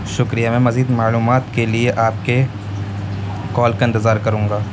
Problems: constant background noise